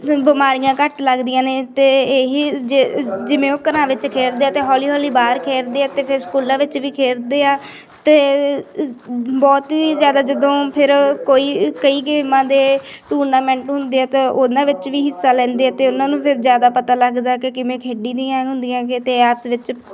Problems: continuous background conversations